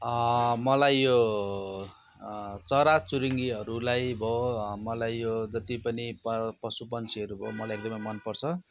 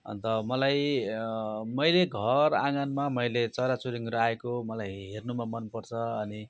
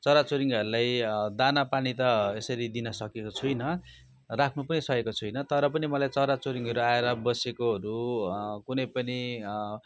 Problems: none marked